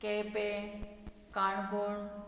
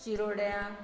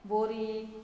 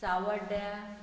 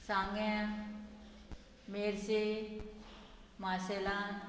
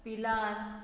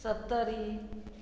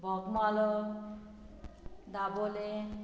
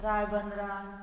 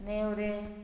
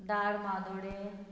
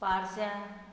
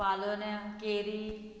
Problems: background sounds at intervals